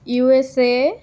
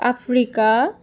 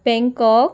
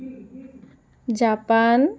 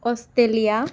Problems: continuous background conversations